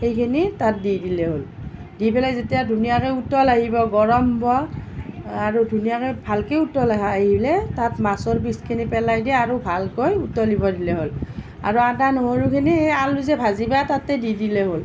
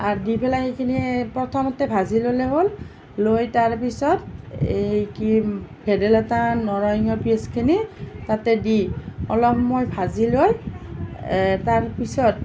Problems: none marked